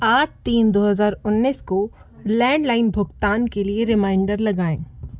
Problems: constant background noise